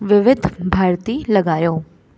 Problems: constant background noise, echo